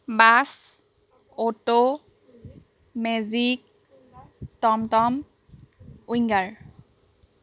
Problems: none marked